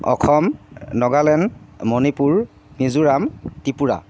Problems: none marked